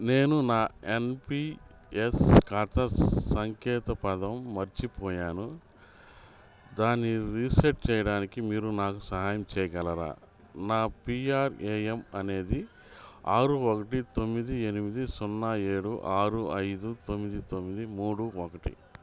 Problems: none marked